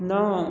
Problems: none marked